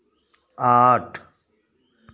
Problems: none marked